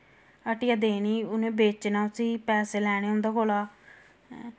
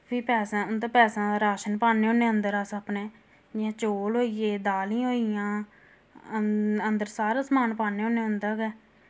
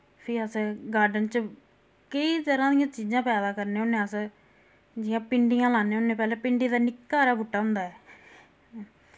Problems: constant background noise